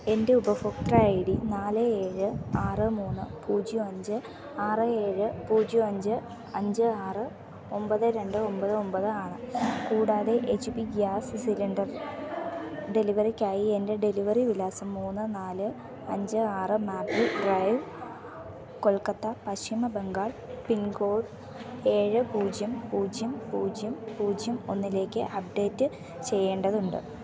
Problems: background sounds at intervals